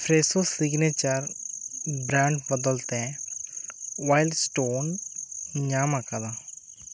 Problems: constant background noise